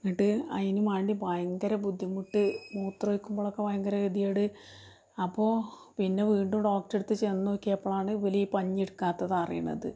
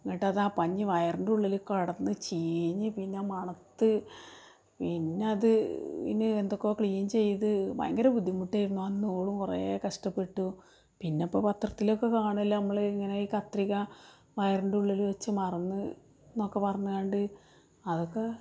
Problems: background sounds at intervals, low volume